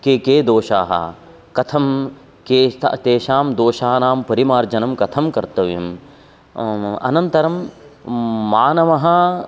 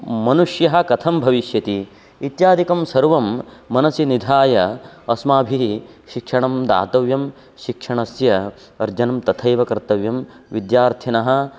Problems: constant background noise